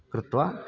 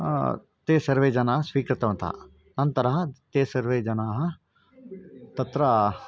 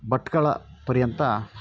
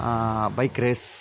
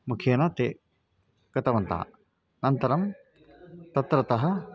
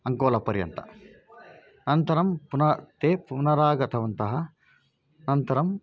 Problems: none marked